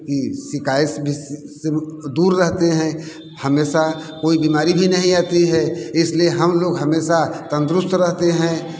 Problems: constant background noise, background conversations at intervals